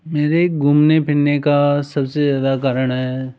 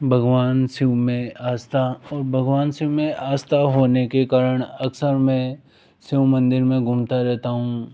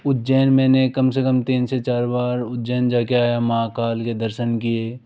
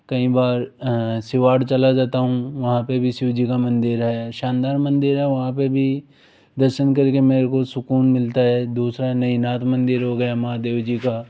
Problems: background sounds at intervals